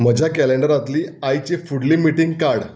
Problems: background sounds at intervals